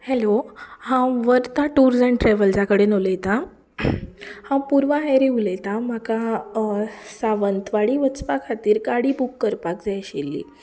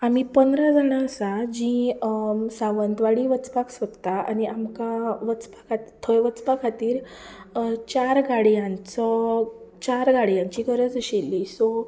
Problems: background sounds at intervals